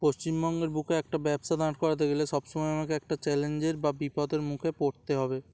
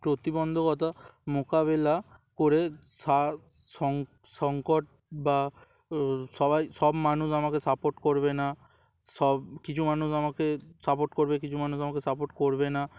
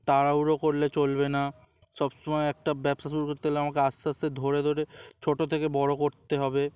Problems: none marked